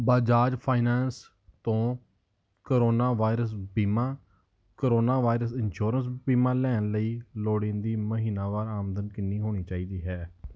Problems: none marked